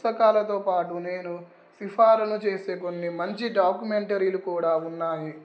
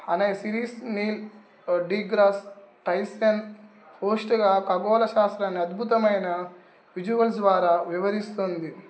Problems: background sounds at intervals